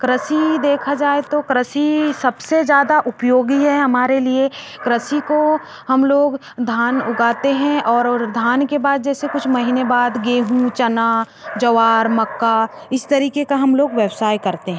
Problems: background sounds at intervals